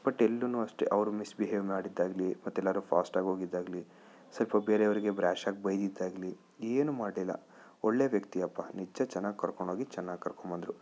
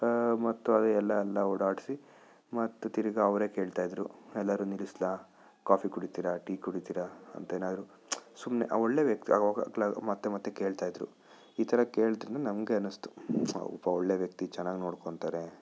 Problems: none marked